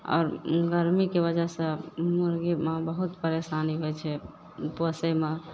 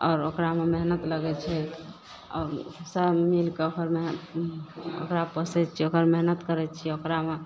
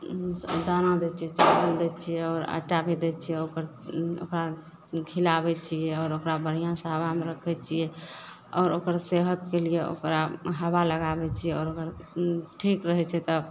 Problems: none marked